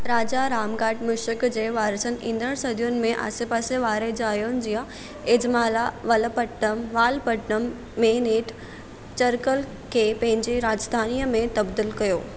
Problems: none marked